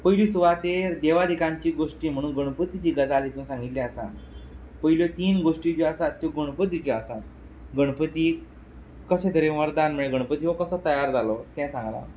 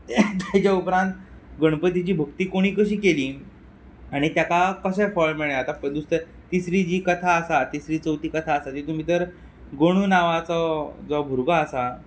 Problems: background sounds at intervals